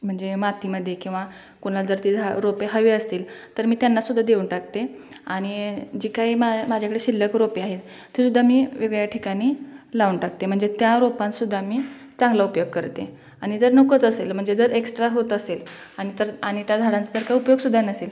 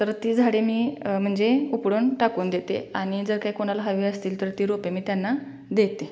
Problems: constant background noise, continuous background conversations